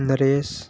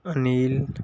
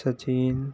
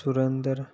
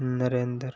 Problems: constant background noise